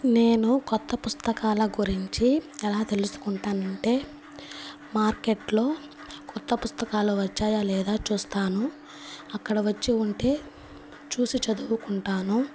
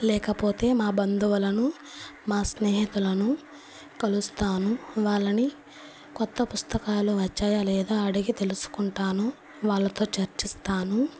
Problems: constant background noise